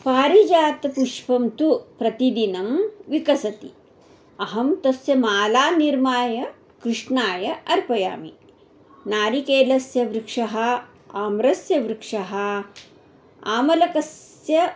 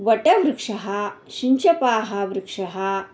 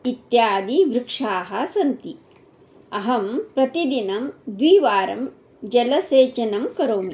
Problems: background sounds at intervals